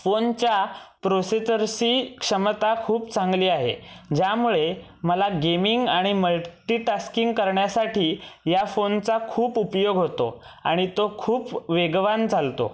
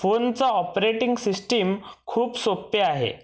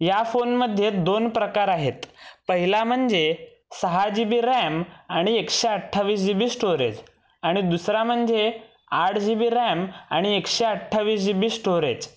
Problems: none marked